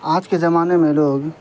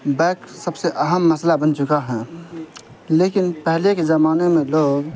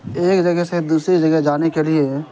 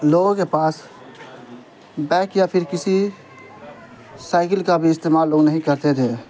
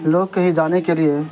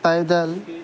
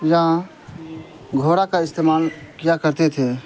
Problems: constant background noise